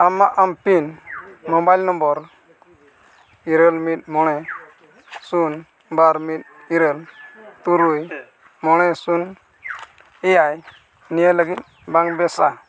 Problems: background sounds at intervals